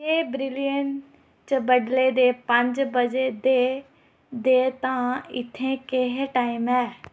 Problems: none marked